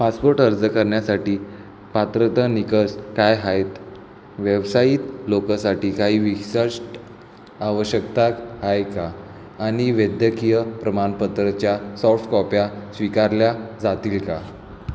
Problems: constant background noise